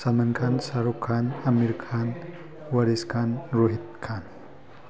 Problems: background conversations at intervals